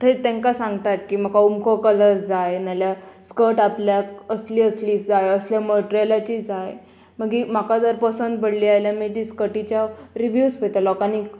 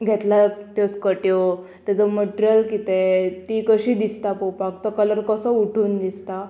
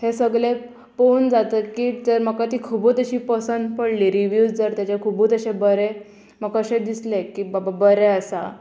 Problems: none marked